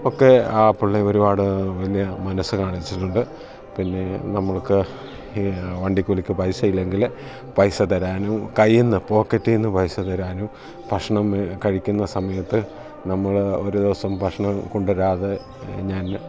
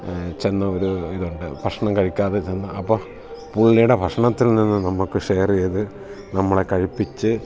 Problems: constant background noise